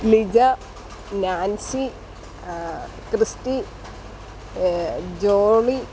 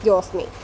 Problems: constant background noise